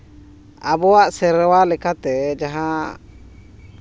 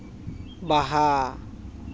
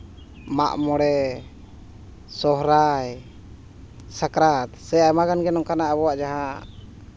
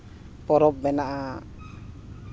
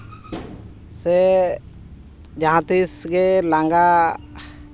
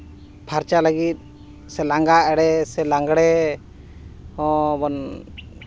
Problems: background sounds at intervals